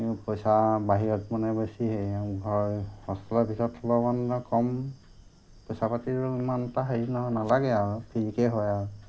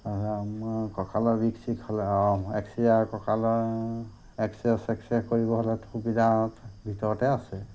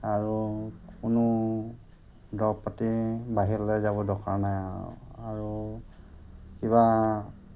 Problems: constant background noise